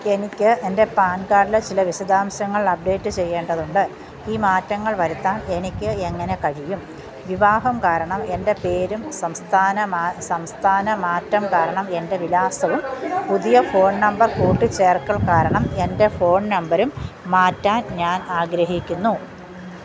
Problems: constant background noise